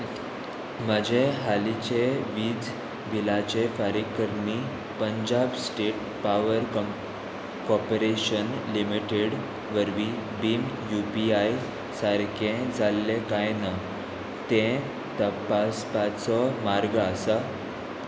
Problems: none marked